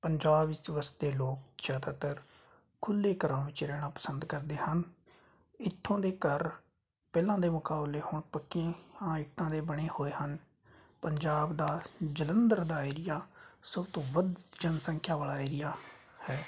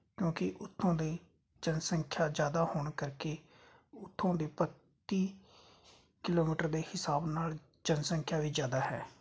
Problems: constant background noise